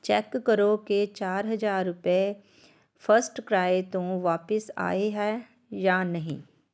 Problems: none marked